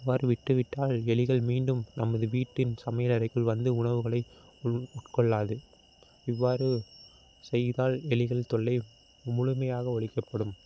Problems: constant background noise